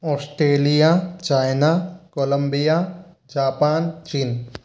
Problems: constant background noise